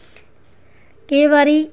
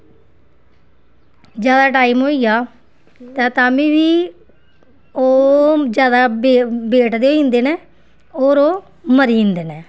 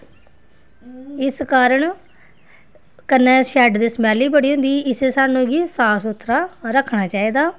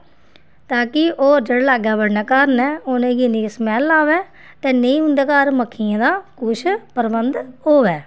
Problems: background sounds at intervals